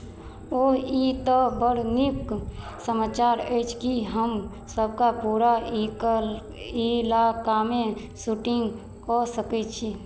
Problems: none marked